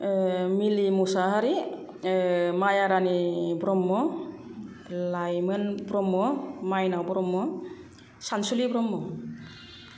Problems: none marked